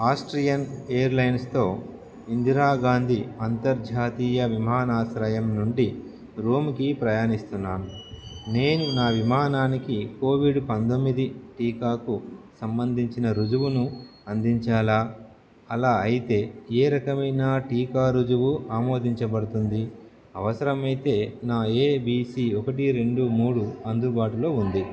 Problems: background conversations at intervals